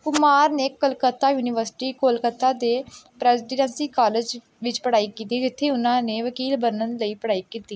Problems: none marked